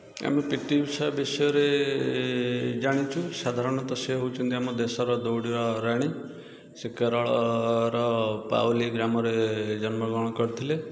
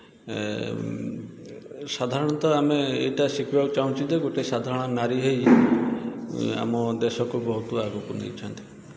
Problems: constant background noise